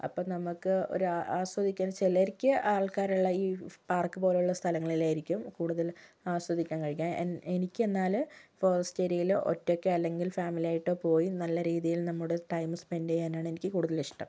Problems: low volume